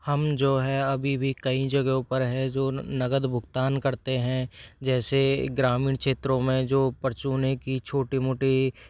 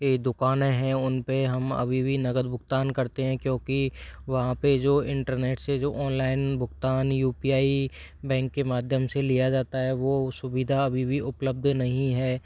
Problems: background sounds at intervals